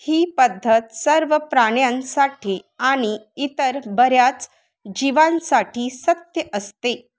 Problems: none marked